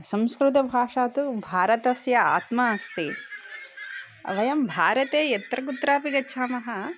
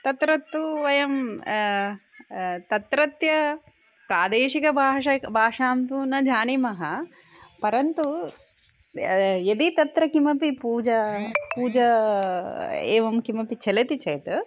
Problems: background sounds at intervals